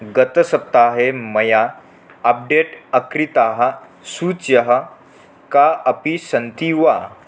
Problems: none marked